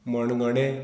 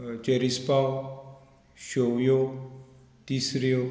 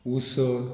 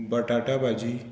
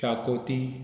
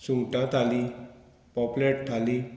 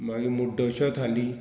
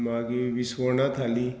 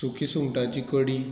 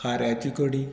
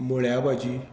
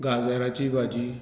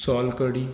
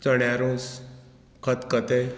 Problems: none marked